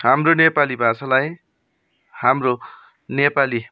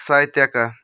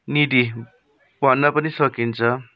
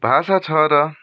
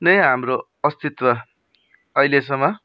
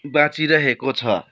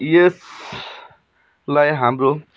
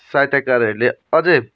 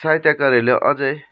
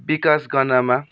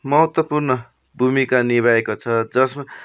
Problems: background sounds at intervals